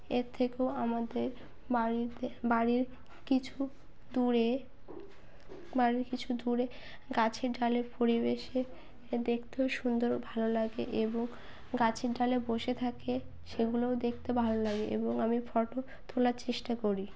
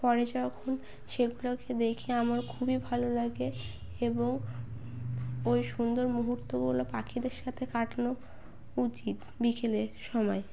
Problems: none marked